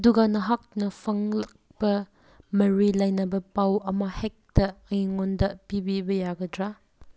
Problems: none marked